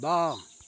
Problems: constant background noise